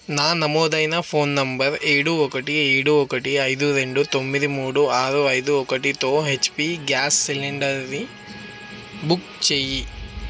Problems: constant background noise